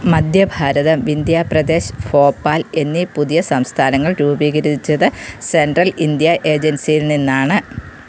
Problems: constant background noise